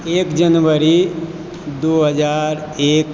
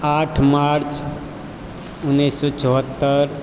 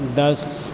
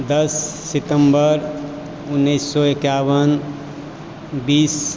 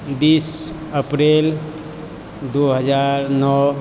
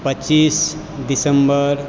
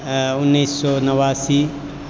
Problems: constant background noise